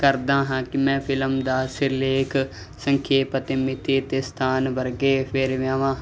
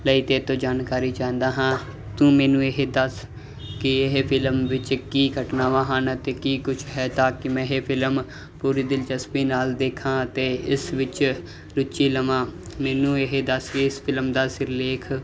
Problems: background sounds at intervals